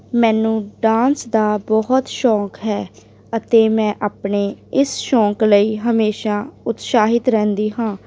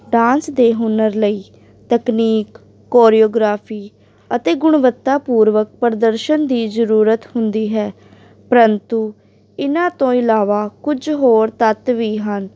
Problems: background sounds at intervals